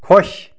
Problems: background sounds at intervals